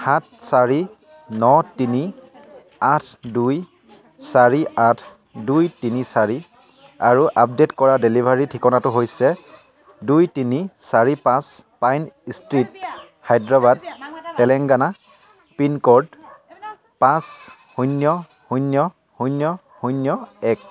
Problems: none marked